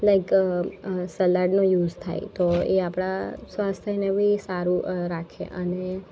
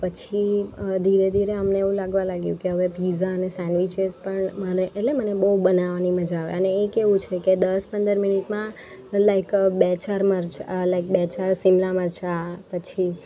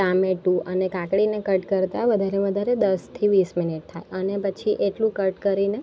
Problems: constant background noise